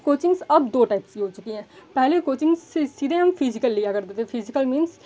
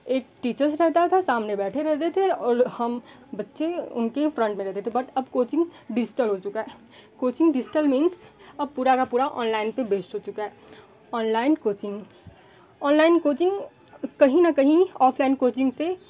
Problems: background sounds at intervals